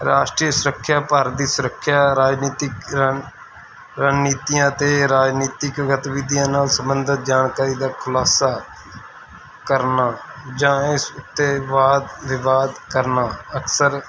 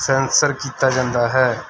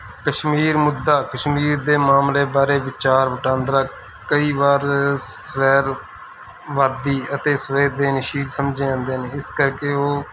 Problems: constant background noise